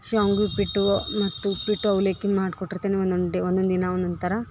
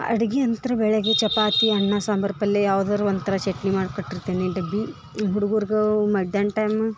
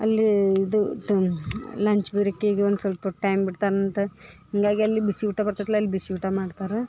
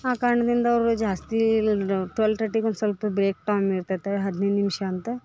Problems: background sounds at intervals